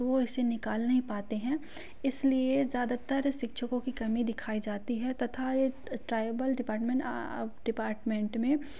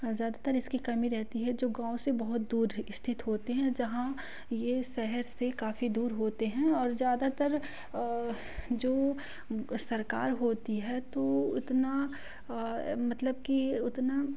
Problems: constant background noise